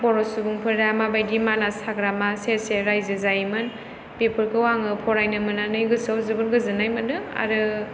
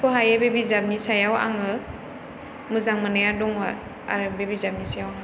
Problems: background sounds at intervals